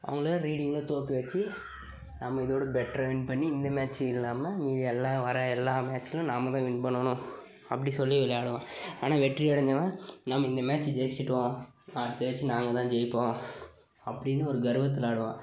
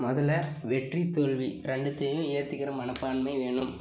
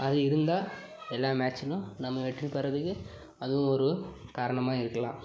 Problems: background conversations at intervals